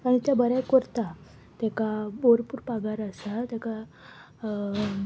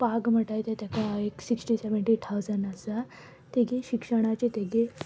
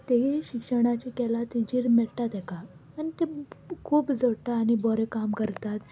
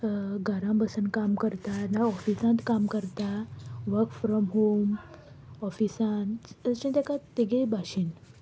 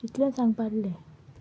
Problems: constant background noise